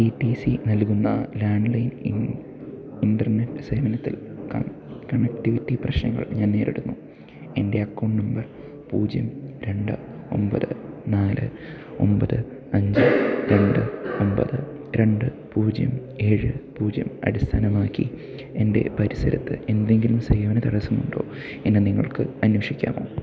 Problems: low volume